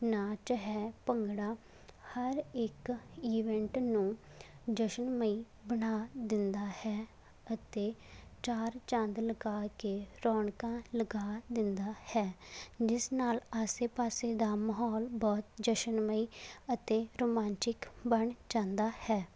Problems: background sounds at intervals